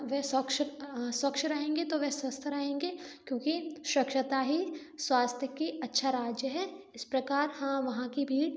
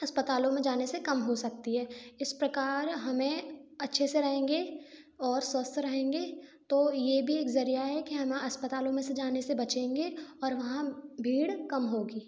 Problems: background sounds at intervals